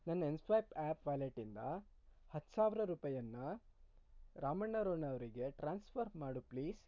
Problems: low volume